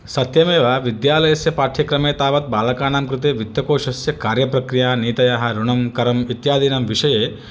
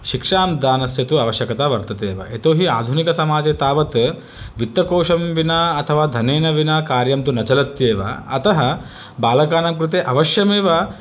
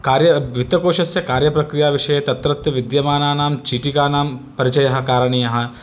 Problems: none marked